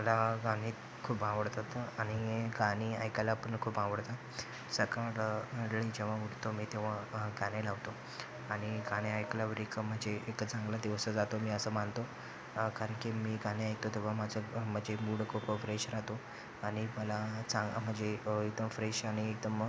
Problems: constant background noise, background conversations at intervals